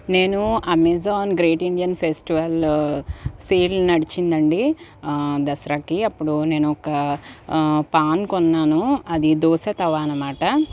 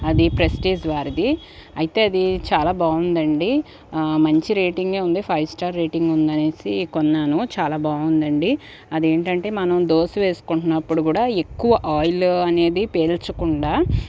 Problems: background sounds at intervals